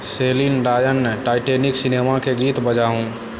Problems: constant background noise